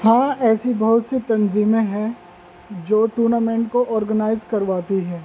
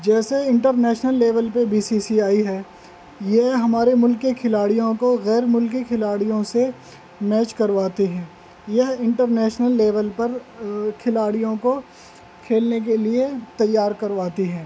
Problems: constant background noise